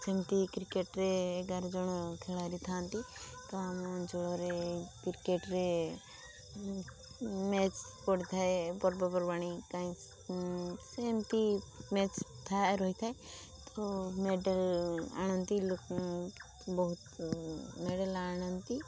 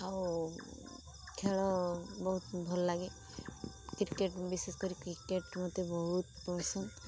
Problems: constant background noise, low volume